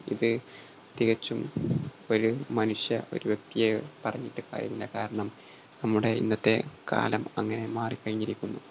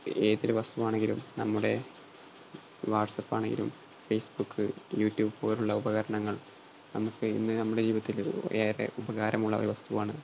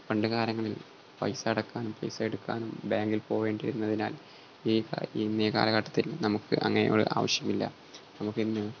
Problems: constant background noise